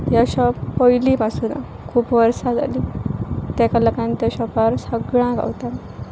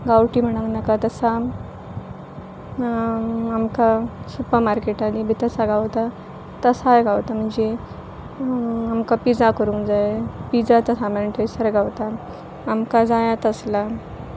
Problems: constant background noise